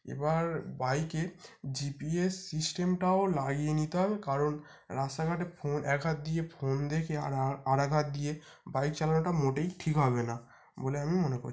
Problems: constant background noise